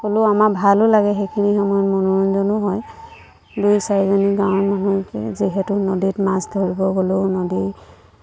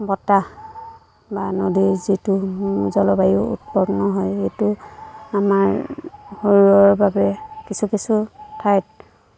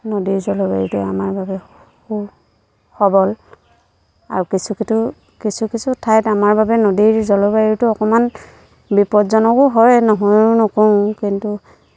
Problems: constant background noise, background conversations at intervals